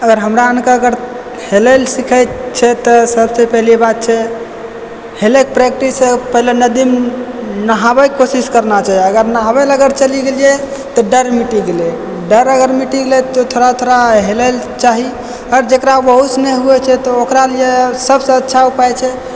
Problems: background sounds at intervals